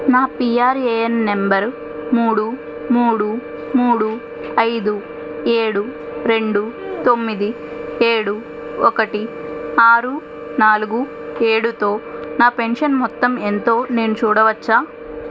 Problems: constant background noise